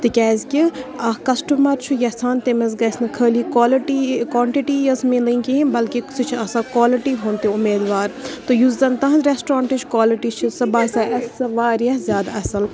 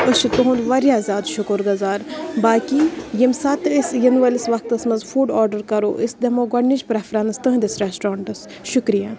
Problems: background sounds at intervals, background conversations at intervals